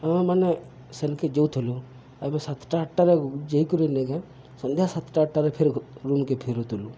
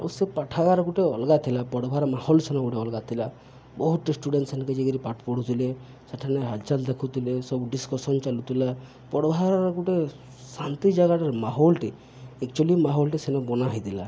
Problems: none marked